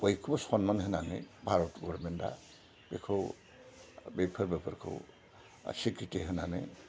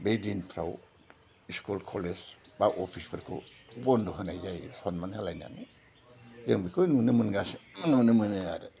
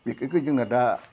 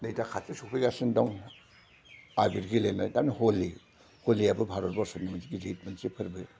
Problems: low volume